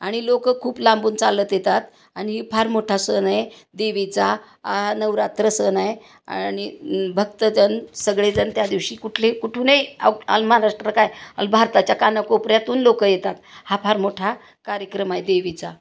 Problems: constant background noise